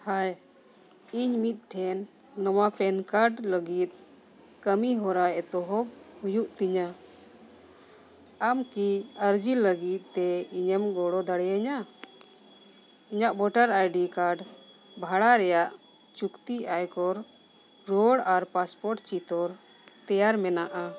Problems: background conversations at intervals